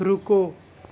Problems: none marked